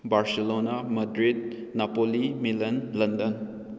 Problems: none marked